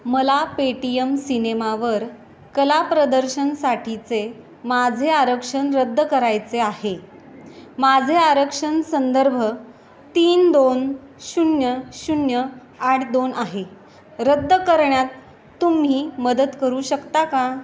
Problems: constant background noise